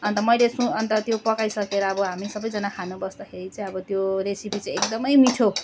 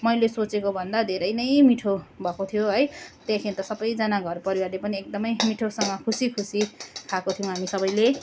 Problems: constant background noise